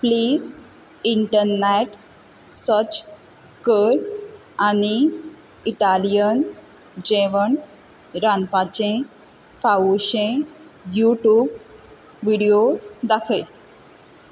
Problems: none marked